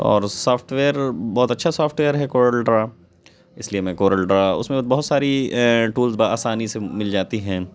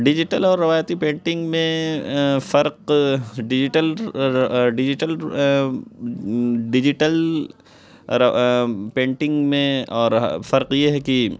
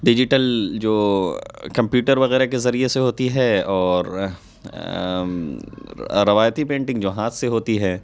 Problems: background sounds at intervals